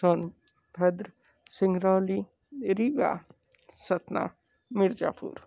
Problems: low volume